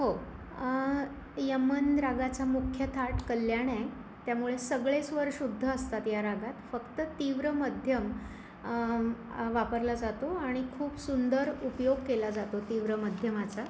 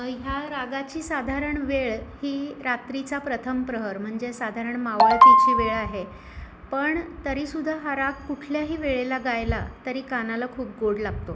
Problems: background sounds at intervals, background conversations at intervals